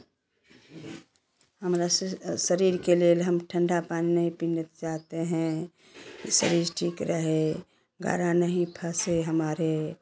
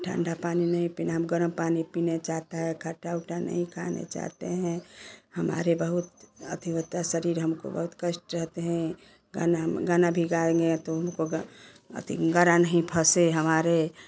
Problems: constant background noise, continuous background conversations